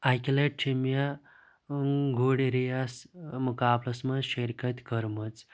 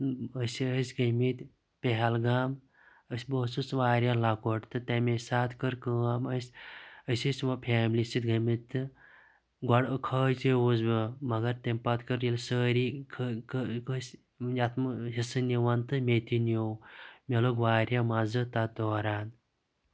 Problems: constant background noise